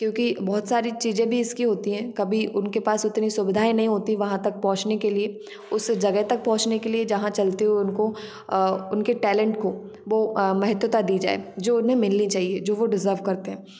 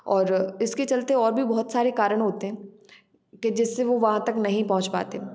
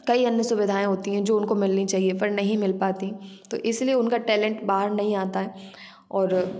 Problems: background sounds at intervals